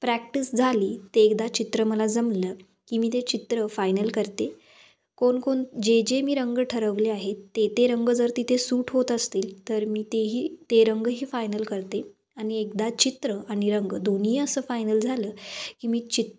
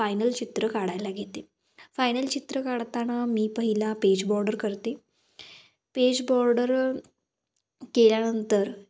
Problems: constant background noise